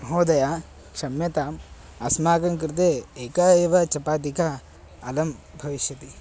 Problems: constant background noise